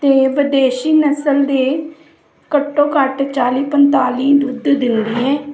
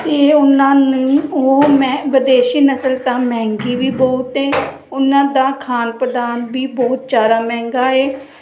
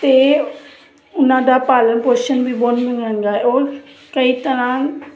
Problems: constant background noise